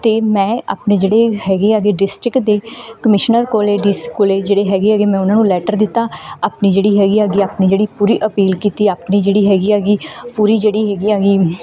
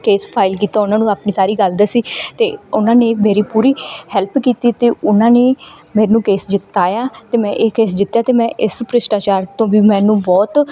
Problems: background sounds at intervals